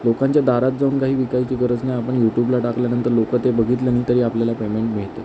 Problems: constant background noise